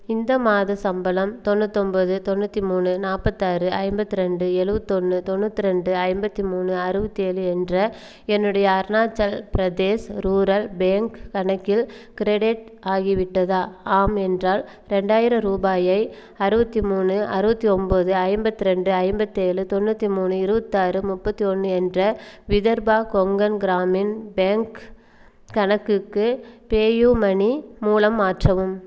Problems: none marked